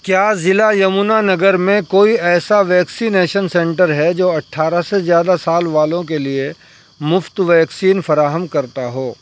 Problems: background sounds at intervals